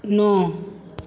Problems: none marked